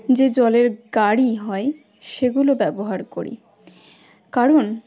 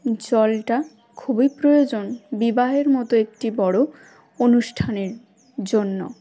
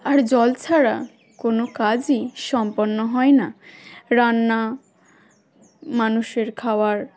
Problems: background sounds at intervals, continuous background conversations